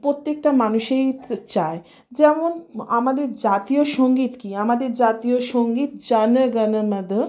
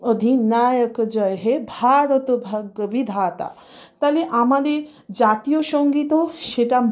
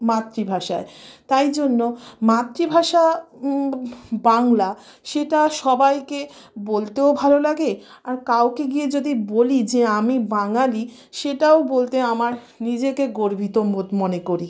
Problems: background sounds at intervals